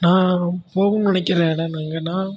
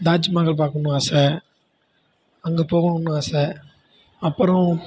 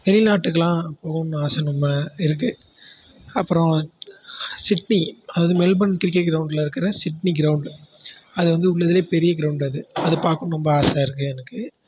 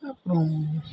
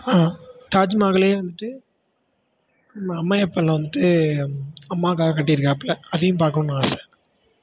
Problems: constant background noise